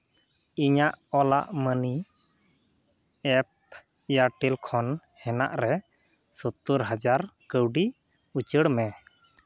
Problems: none marked